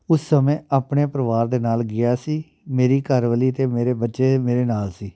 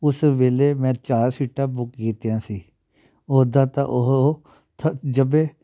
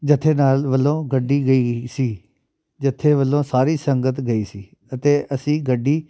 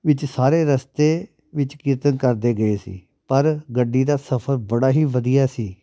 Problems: none marked